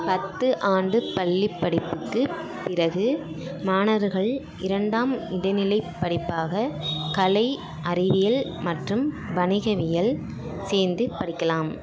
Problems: continuous background conversations